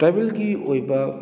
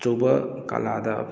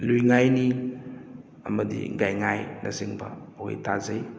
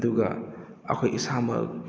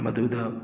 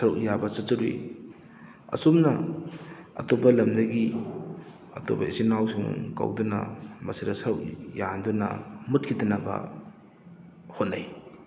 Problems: background sounds at intervals